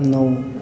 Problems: none marked